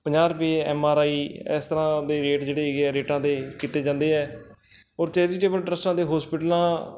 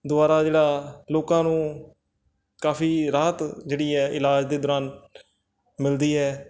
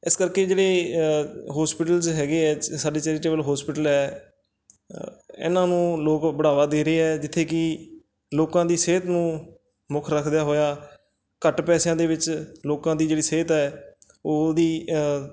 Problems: background sounds at intervals